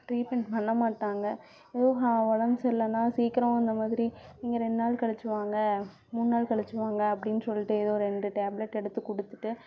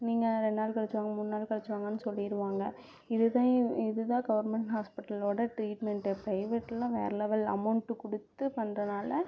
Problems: none marked